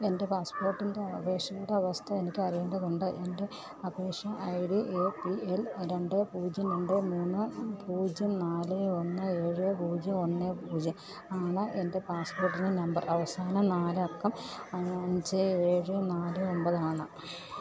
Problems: background sounds at intervals, low volume